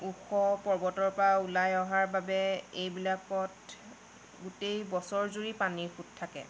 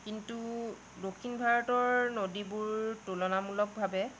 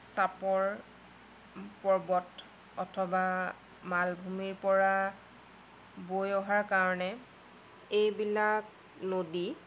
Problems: background sounds at intervals, low volume